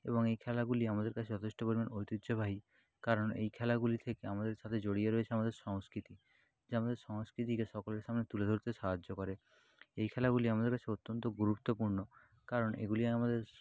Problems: constant background noise